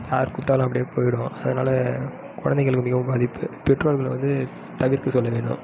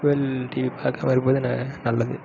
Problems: background sounds at intervals